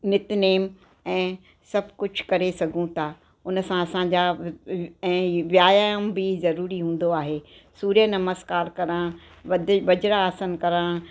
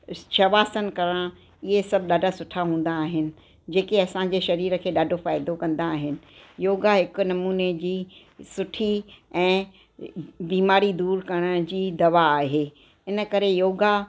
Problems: constant background noise